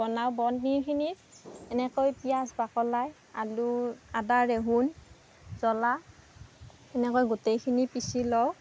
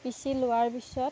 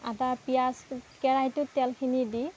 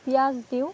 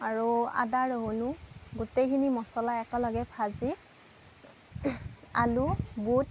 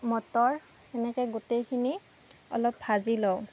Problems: background sounds at intervals